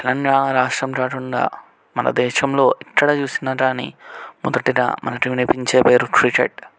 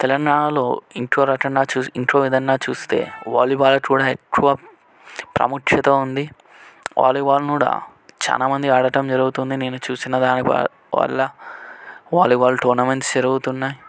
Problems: background conversations at intervals